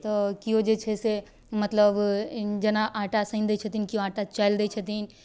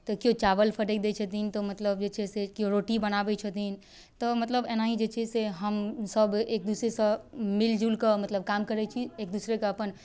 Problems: none marked